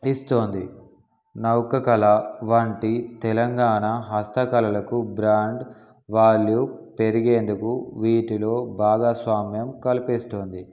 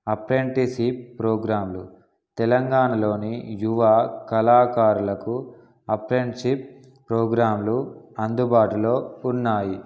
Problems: background sounds at intervals